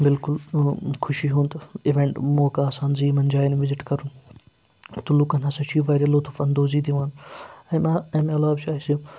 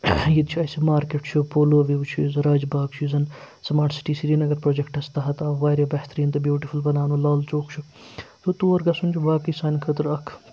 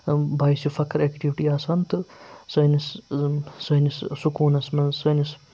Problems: none marked